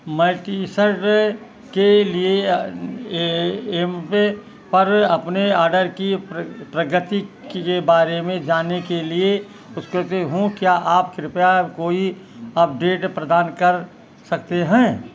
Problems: background sounds at intervals